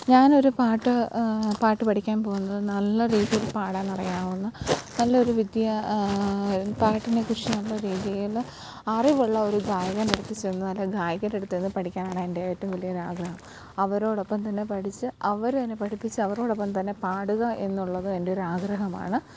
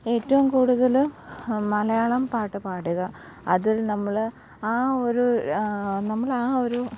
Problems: background sounds at intervals, low volume